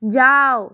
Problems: none marked